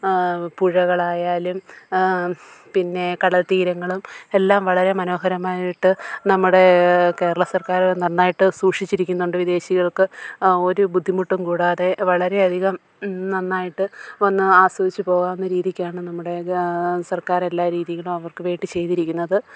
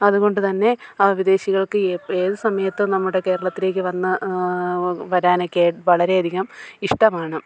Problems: low volume